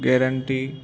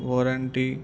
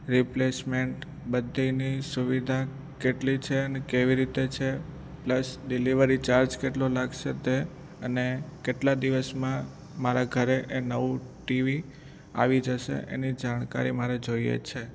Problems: none marked